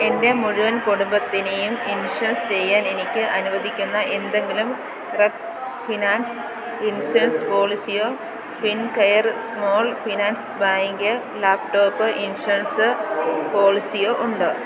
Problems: constant background noise